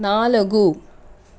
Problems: constant background noise